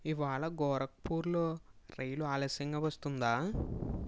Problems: background sounds at intervals